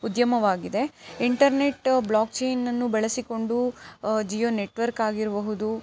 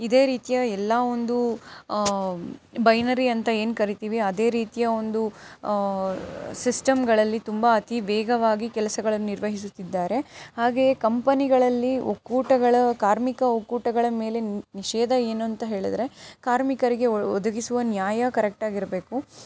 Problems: none marked